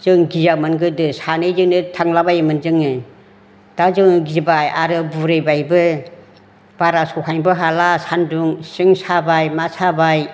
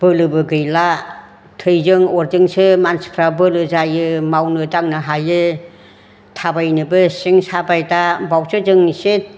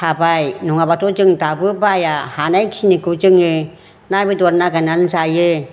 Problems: constant background noise